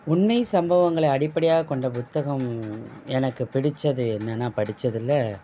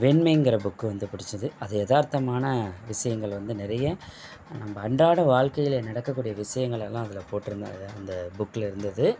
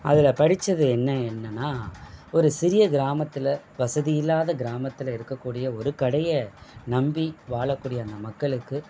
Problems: background sounds at intervals